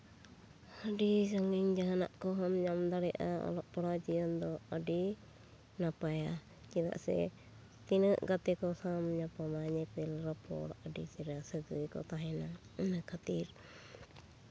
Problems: none marked